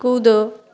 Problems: constant background noise